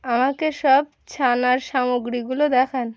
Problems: constant background noise